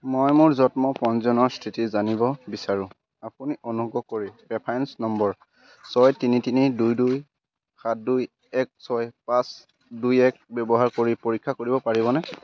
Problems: constant background noise